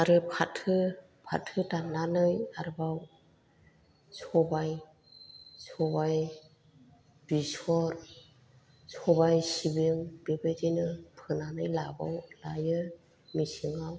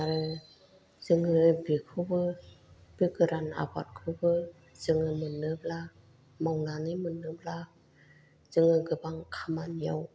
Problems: low volume